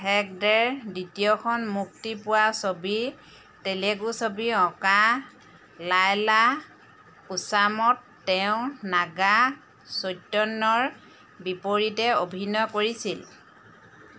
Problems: constant background noise